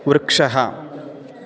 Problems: constant background noise, continuous background conversations